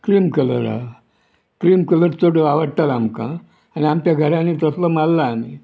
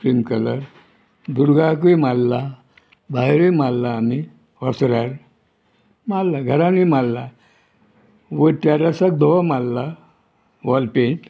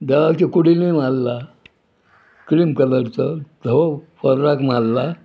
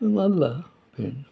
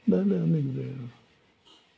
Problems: background sounds at intervals